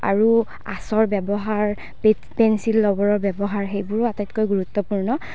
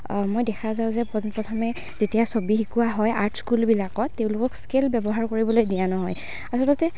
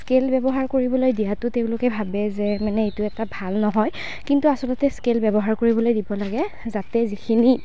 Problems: none marked